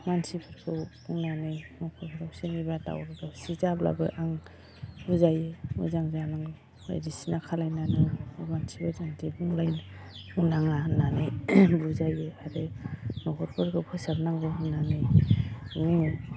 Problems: low volume